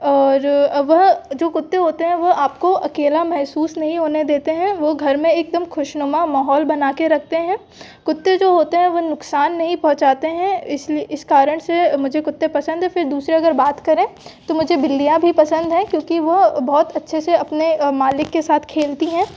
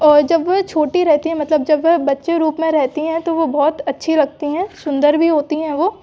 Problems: background sounds at intervals